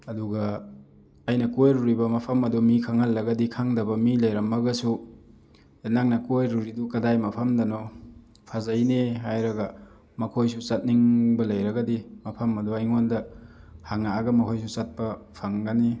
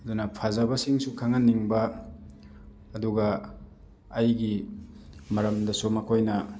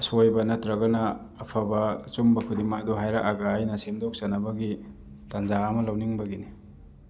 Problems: background sounds at intervals